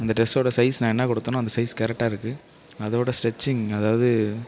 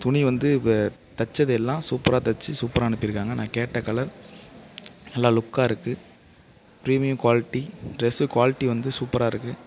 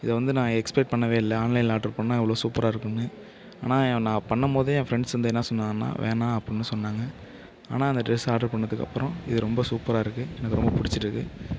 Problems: none marked